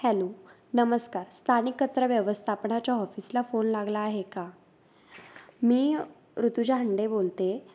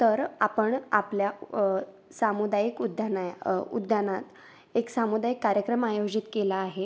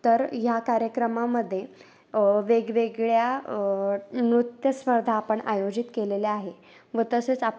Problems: background sounds at intervals